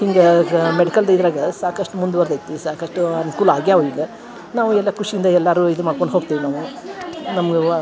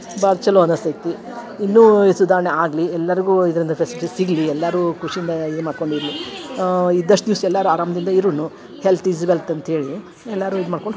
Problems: background sounds at intervals